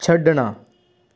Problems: background sounds at intervals